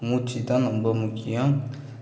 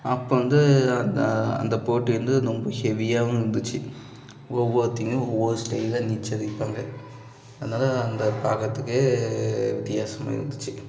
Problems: background sounds at intervals, background conversations at intervals